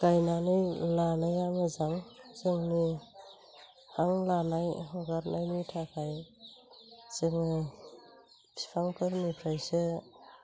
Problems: constant background noise